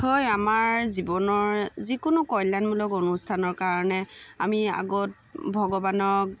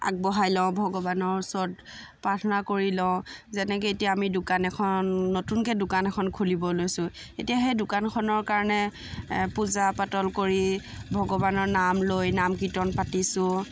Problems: constant background noise